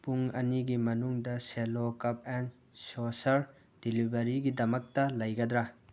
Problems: background sounds at intervals